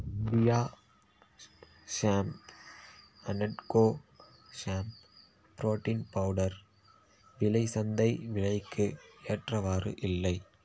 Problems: none marked